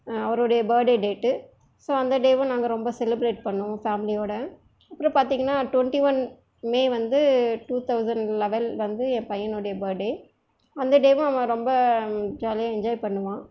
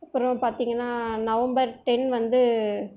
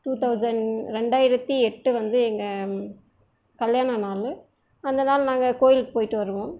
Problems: none marked